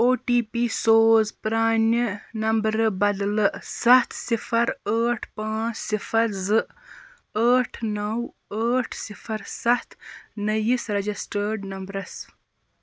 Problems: constant background noise